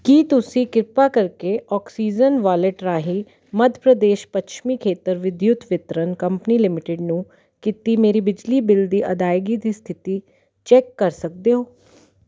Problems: constant background noise